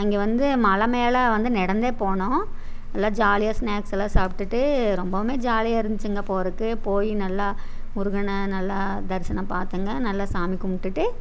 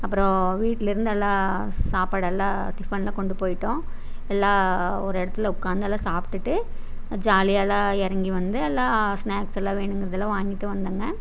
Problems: none marked